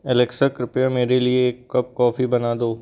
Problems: none marked